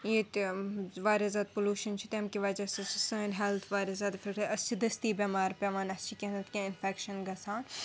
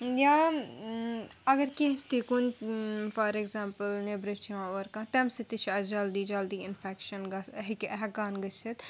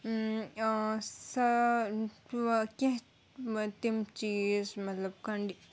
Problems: background sounds at intervals